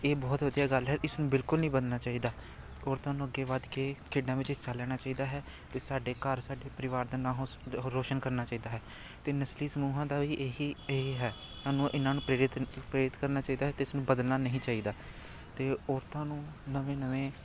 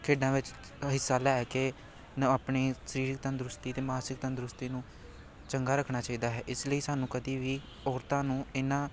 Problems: continuous background conversations